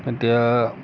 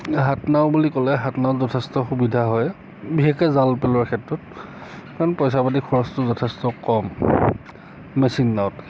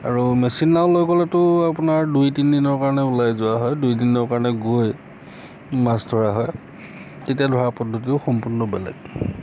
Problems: constant background noise, background conversations at intervals